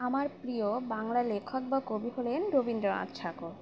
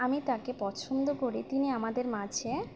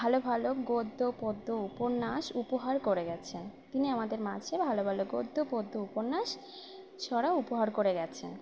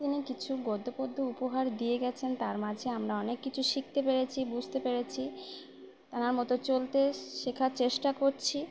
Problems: none marked